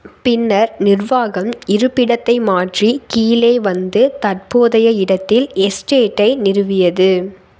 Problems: constant background noise